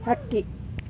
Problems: none marked